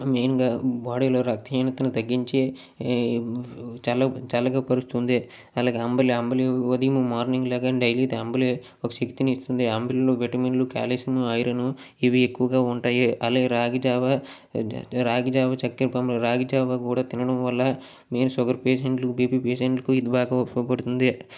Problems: none marked